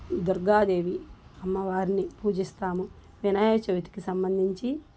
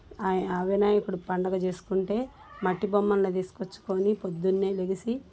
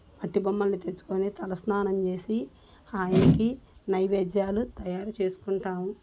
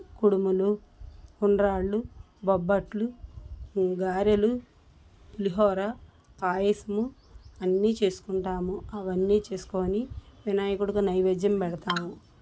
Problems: constant background noise